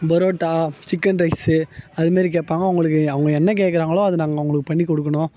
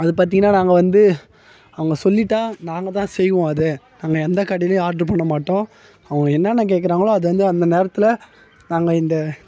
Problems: background conversations at intervals